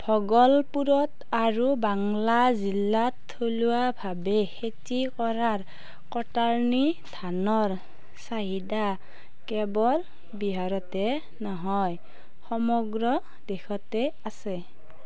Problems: background conversations at intervals